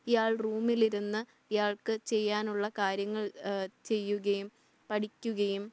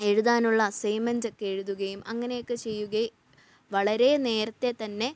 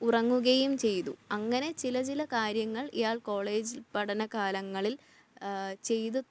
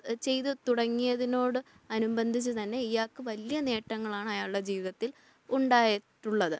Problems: low volume